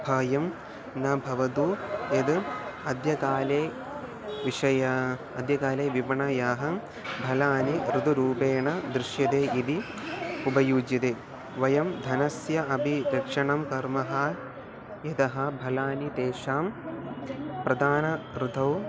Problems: background sounds at intervals